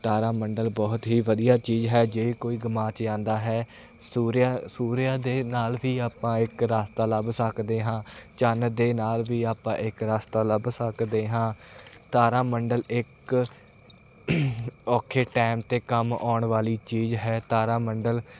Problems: none marked